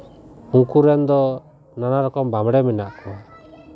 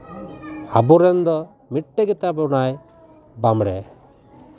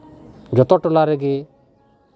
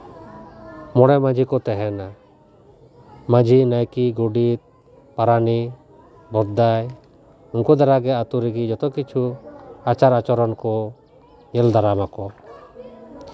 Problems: constant background noise, continuous background conversations